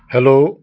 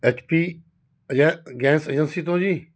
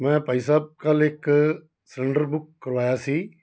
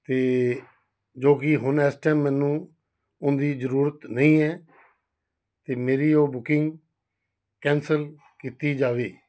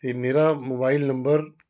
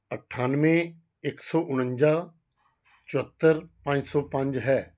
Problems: background sounds at intervals